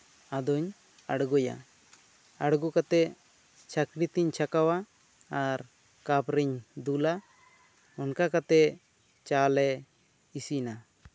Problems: constant background noise